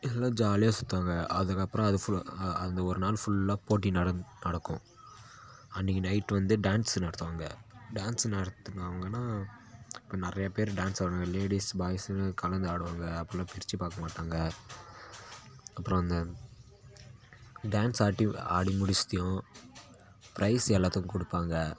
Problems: constant background noise, background conversations at intervals